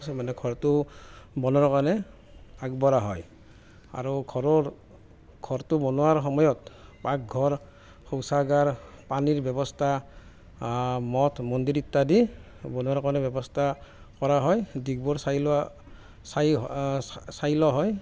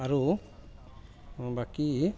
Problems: constant background noise